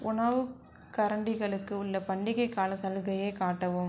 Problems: none marked